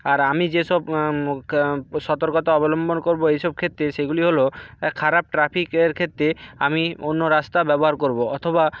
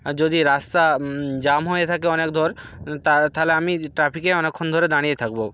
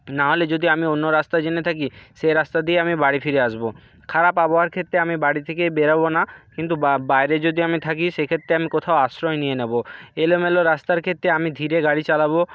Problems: background sounds at intervals, background conversations at intervals